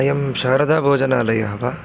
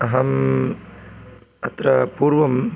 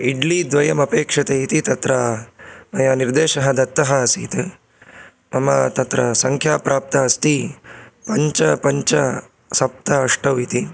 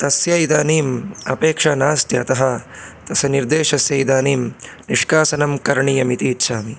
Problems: constant background noise